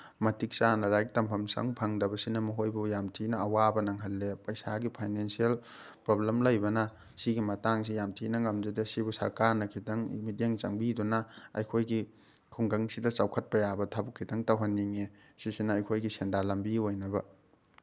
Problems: none marked